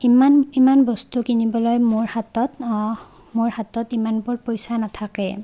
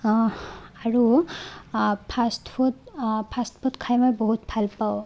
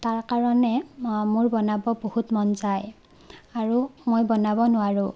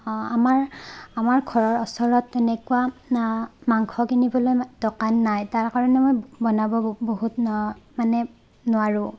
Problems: none marked